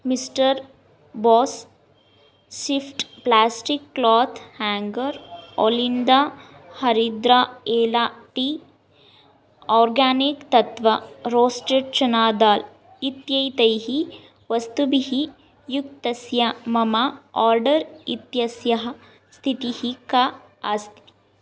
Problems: none marked